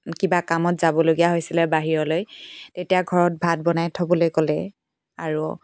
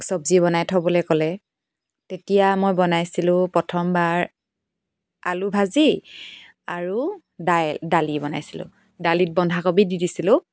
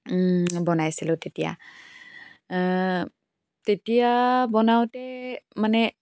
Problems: none marked